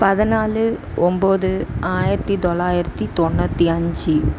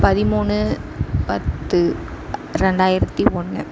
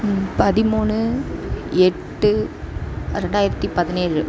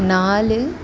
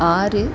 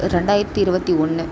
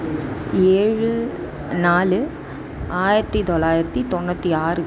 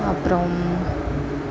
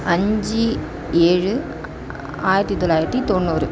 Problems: constant background noise, background conversations at intervals